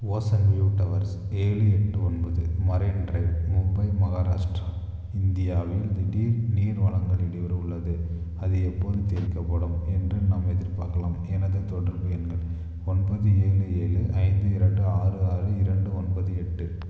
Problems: constant background noise, low volume